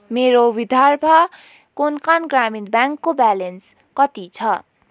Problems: none marked